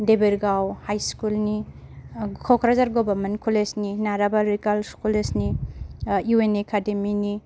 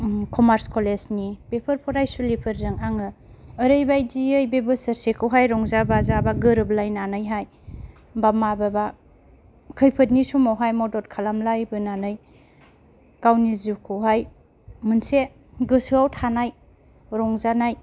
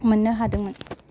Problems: none marked